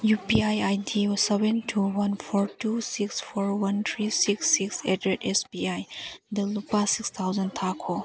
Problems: background sounds at intervals